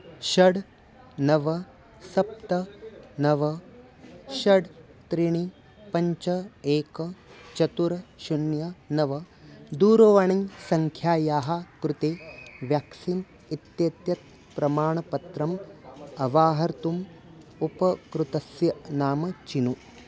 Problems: constant background noise